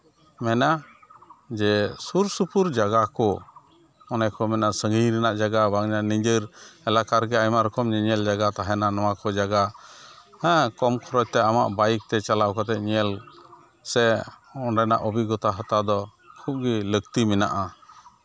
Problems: constant background noise